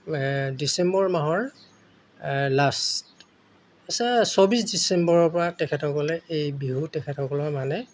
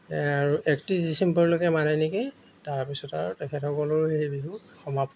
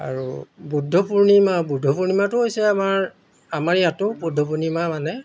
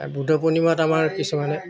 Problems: background sounds at intervals